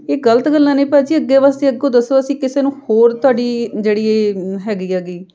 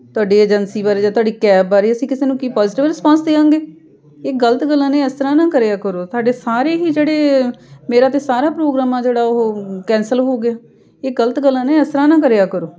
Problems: background sounds at intervals, background conversations at intervals